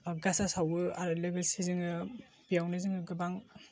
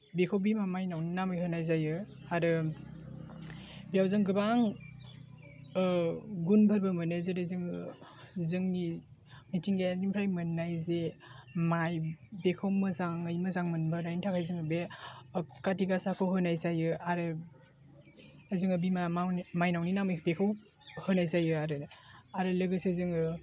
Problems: none marked